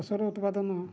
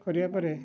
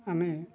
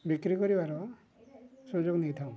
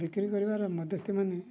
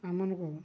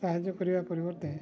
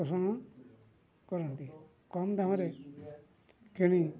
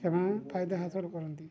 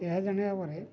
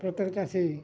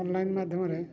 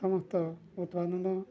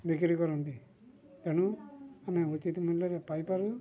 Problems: low volume